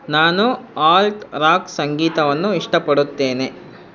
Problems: constant background noise